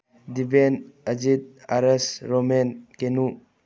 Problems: low volume